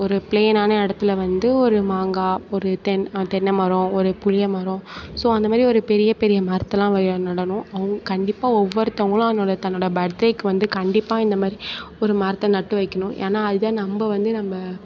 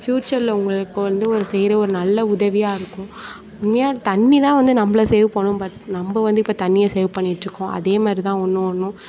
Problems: none marked